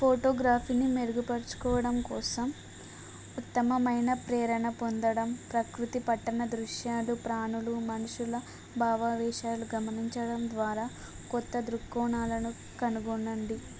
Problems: none marked